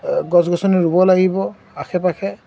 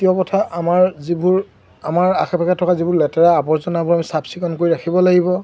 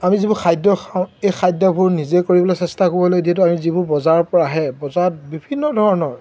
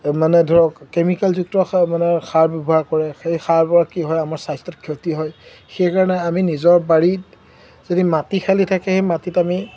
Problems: none marked